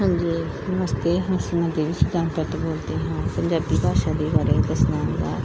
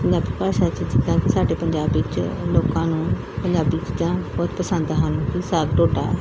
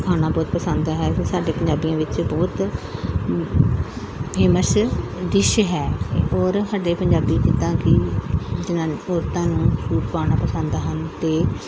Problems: background sounds at intervals